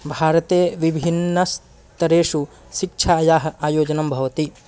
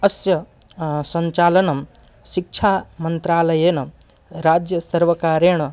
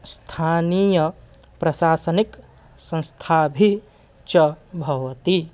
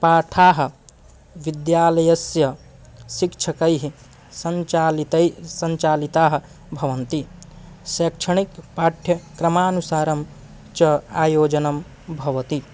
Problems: constant background noise